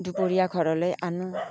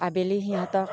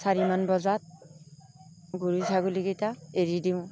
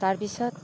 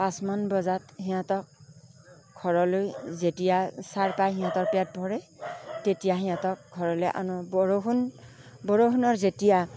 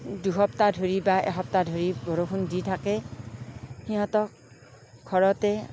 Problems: background sounds at intervals, background conversations at intervals